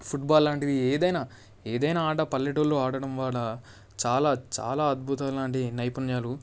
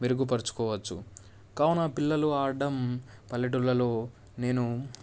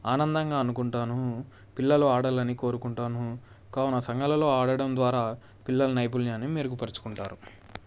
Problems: none marked